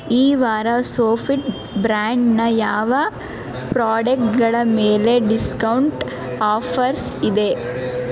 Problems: none marked